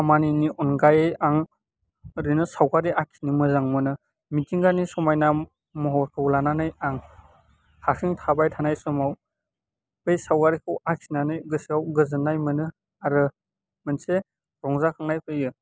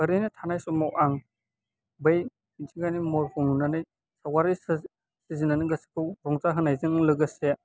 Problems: constant background noise